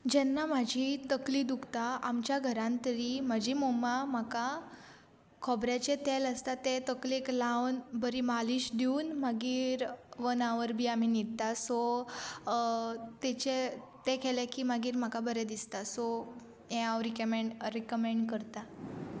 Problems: constant background noise